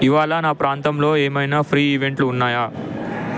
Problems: constant background noise